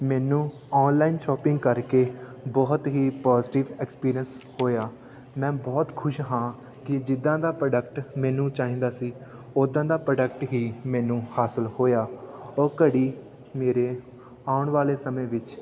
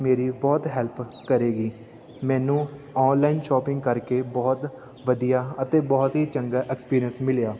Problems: constant background noise, continuous background conversations